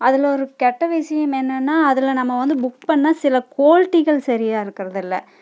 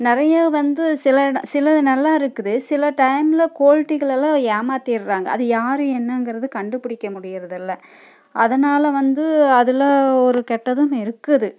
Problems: none marked